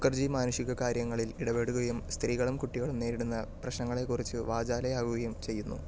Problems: low volume